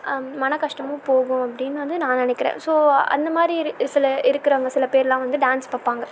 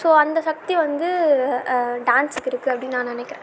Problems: constant background noise